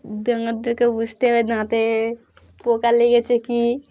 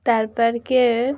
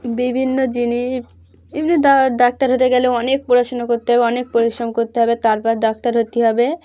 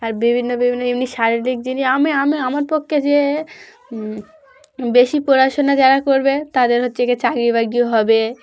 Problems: background conversations at intervals